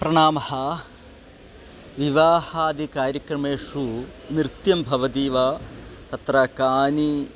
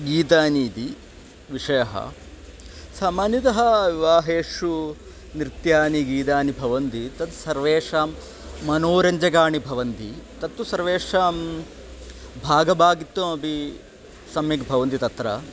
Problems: background conversations at intervals